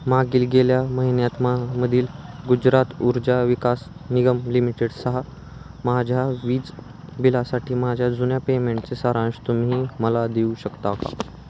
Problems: none marked